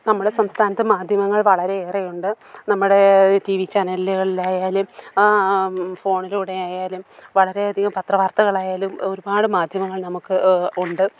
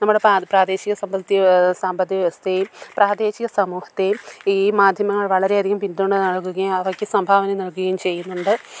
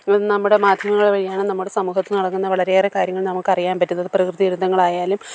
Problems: none marked